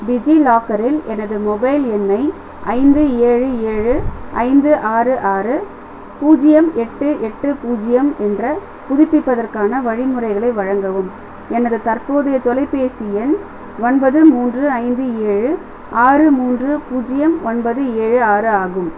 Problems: constant background noise